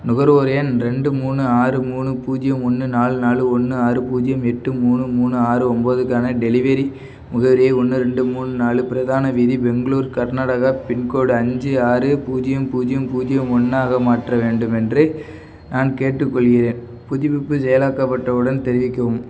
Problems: background sounds at intervals